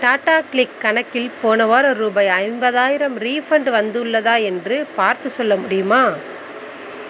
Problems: background sounds at intervals